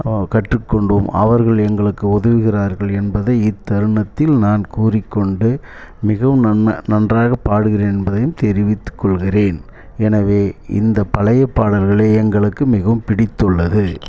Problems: background sounds at intervals, low volume